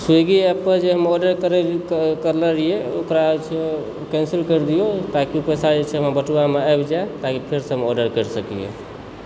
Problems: background sounds at intervals